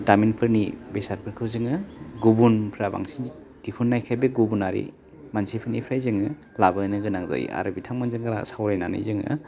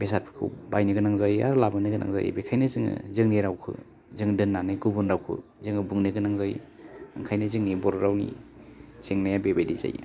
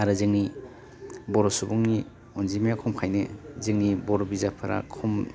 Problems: none marked